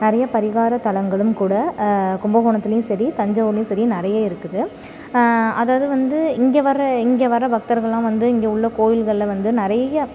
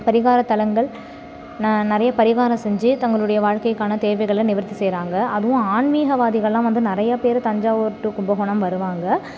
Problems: background sounds at intervals